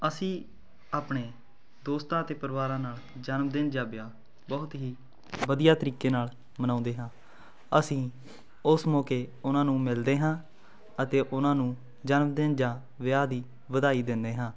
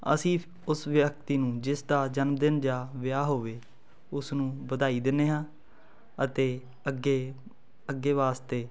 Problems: constant background noise